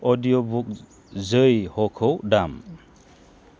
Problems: low volume